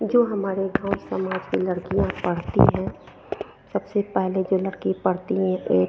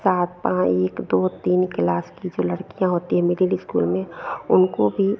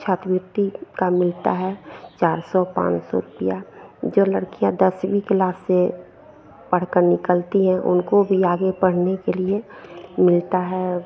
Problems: none marked